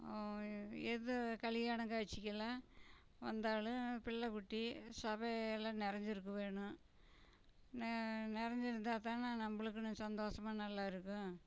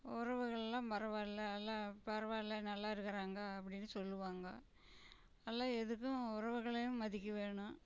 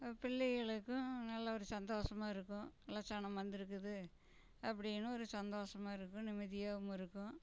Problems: none marked